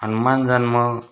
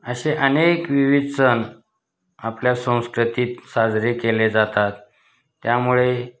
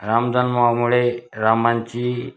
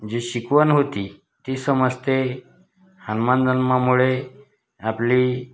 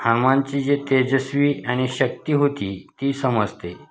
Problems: none marked